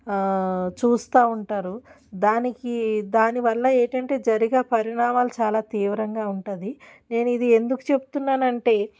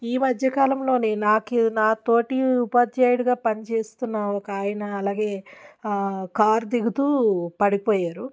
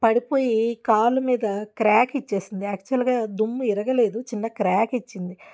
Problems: none marked